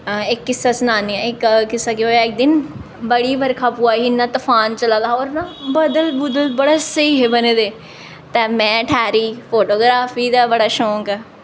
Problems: echo